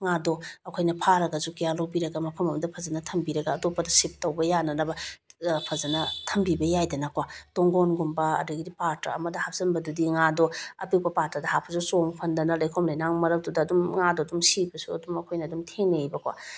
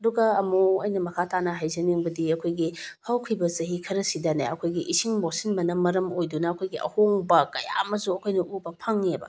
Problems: none marked